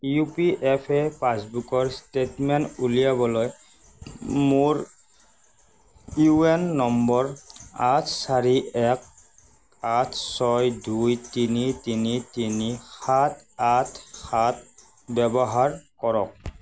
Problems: constant background noise